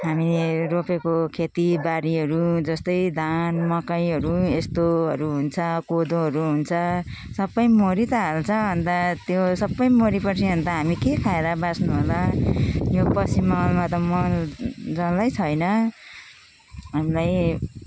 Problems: constant background noise